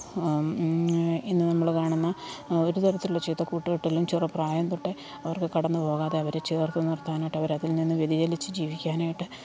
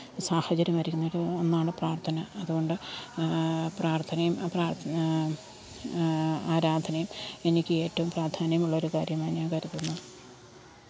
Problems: constant background noise, low volume